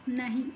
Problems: none marked